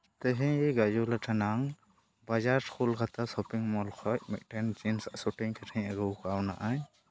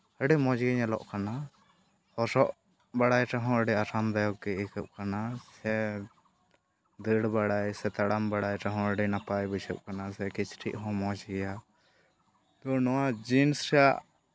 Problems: background sounds at intervals